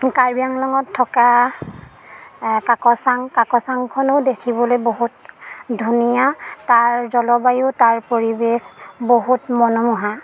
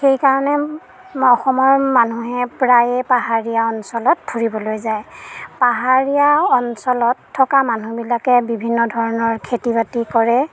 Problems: background sounds at intervals